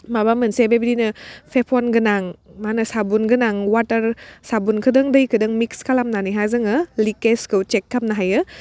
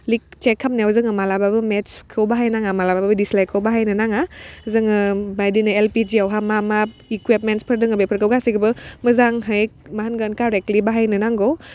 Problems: none marked